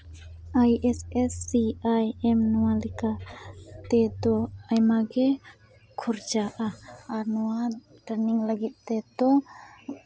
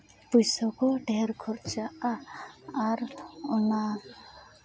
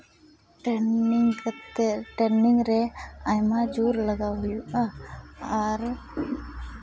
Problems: none marked